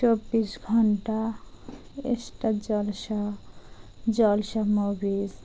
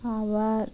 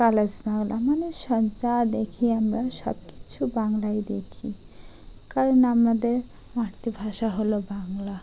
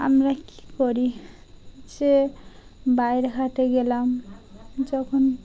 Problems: constant background noise